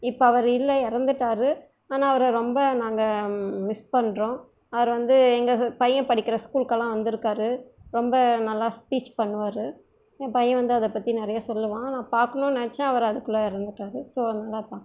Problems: low volume